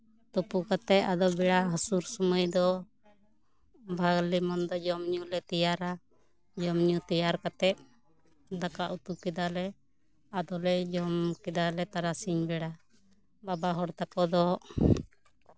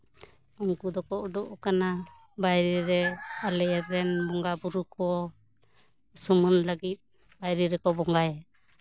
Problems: constant background noise, background conversations at intervals